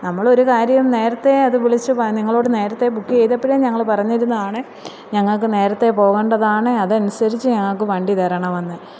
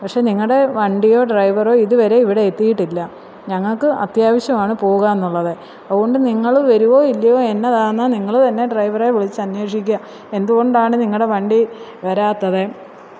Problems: none marked